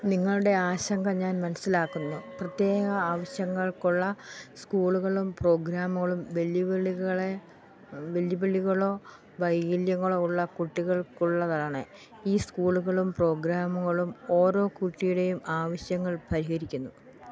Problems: background sounds at intervals